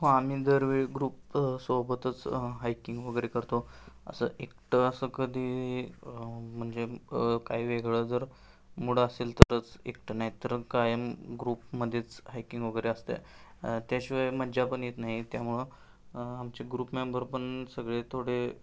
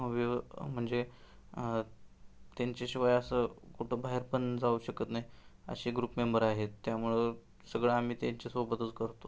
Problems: constant background noise